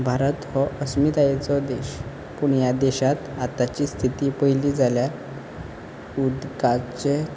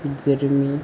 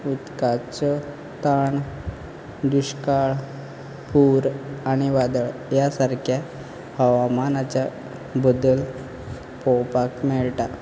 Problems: background sounds at intervals